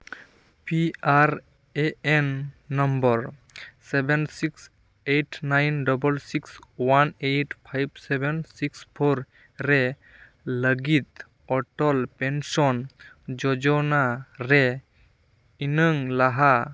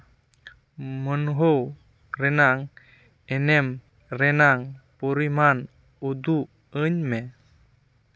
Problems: background sounds at intervals